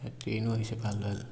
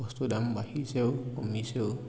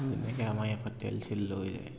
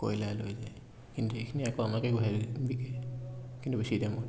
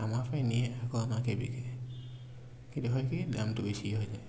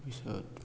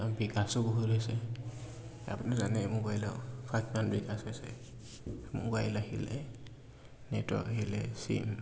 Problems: none marked